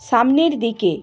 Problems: constant background noise